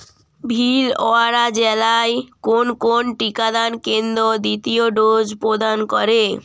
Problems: none marked